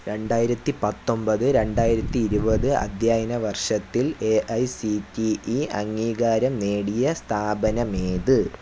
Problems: none marked